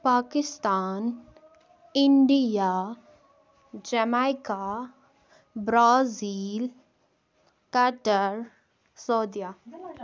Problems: background conversations at intervals